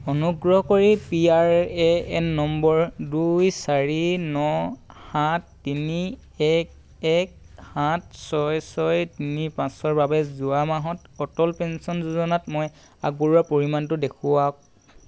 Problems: constant background noise